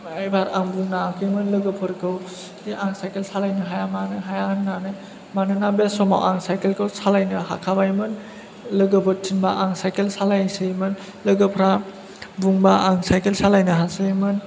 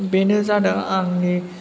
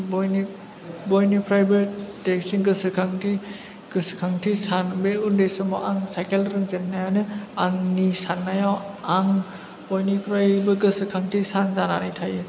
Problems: background sounds at intervals